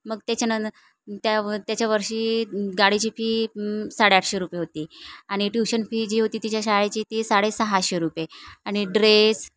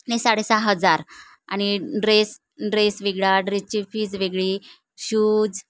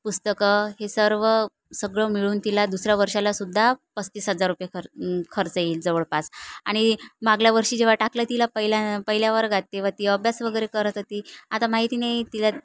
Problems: none marked